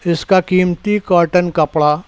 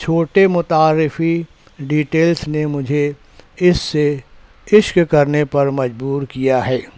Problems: background sounds at intervals